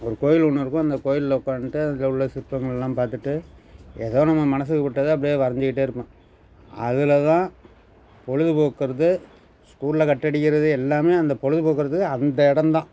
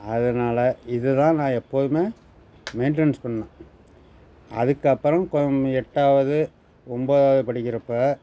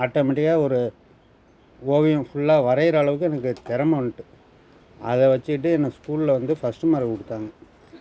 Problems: background sounds at intervals